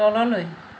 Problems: constant background noise